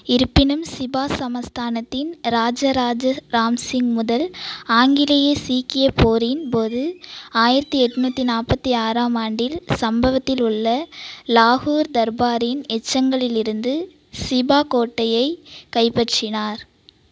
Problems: none marked